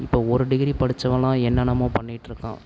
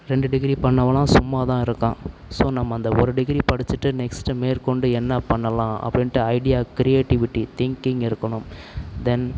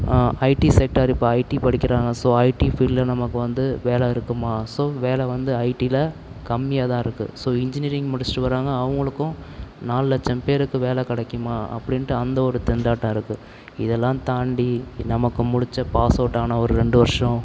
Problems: none marked